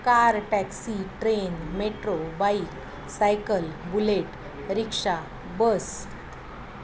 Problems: none marked